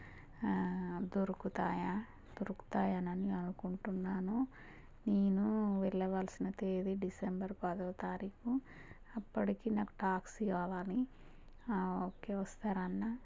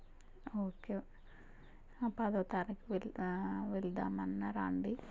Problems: low volume